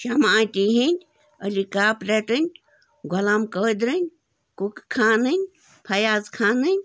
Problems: background sounds at intervals